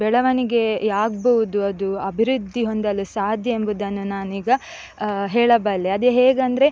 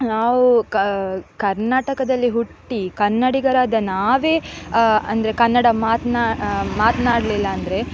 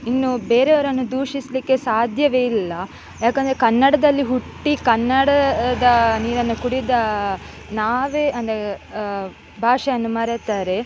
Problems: constant background noise